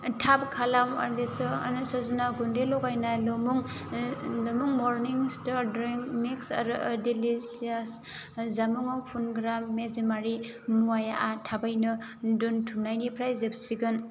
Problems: low volume